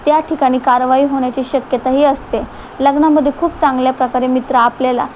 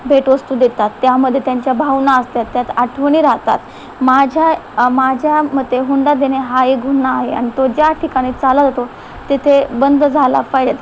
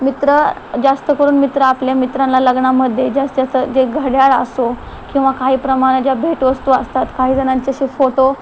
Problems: constant background noise, background conversations at intervals